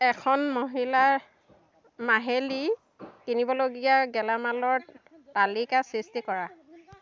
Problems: background sounds at intervals